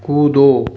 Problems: none marked